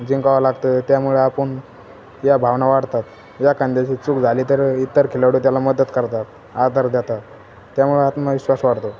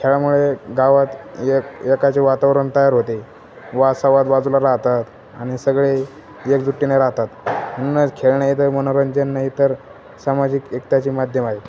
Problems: none marked